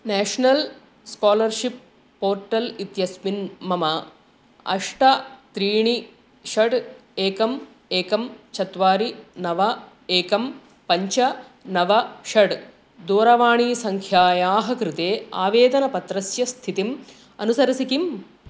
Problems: constant background noise